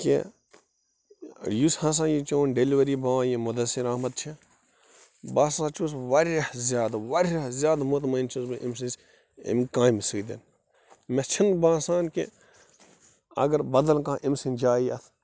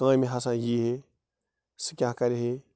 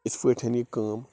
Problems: background sounds at intervals